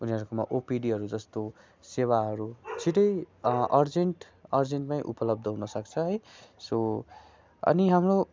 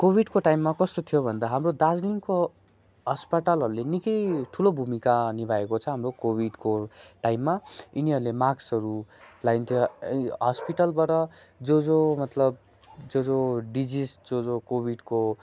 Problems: constant background noise